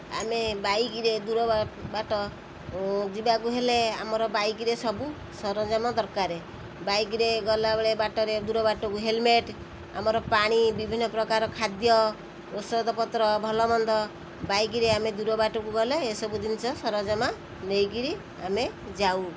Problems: constant background noise